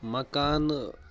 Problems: background sounds at intervals